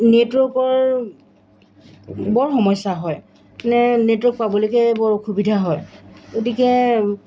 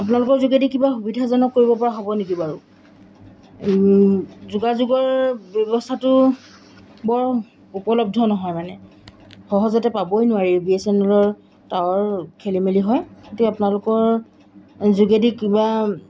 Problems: background sounds at intervals